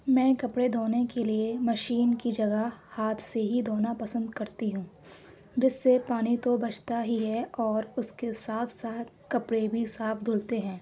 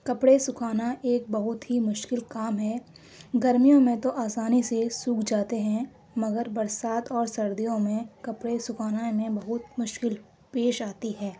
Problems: none marked